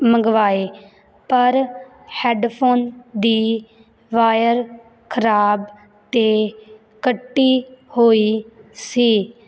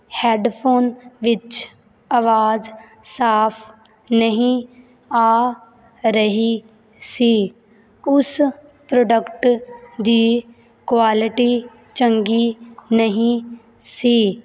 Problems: background sounds at intervals